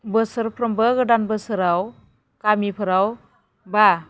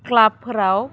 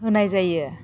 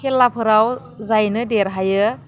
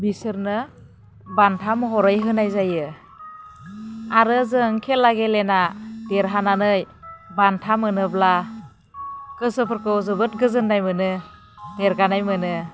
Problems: none marked